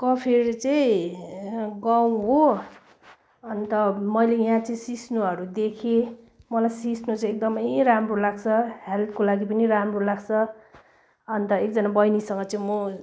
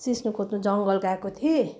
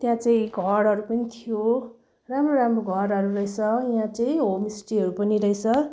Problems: none marked